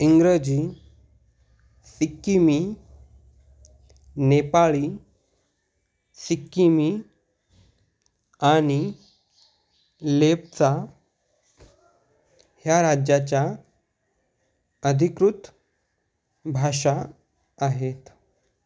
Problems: background sounds at intervals